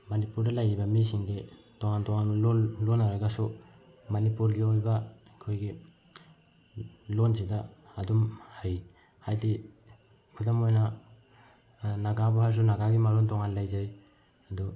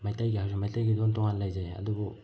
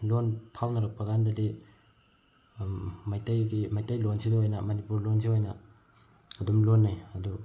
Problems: background sounds at intervals